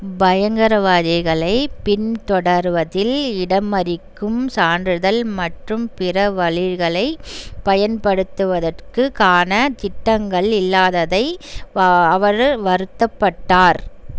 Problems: none marked